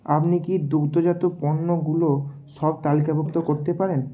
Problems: none marked